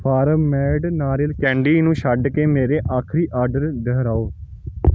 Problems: background sounds at intervals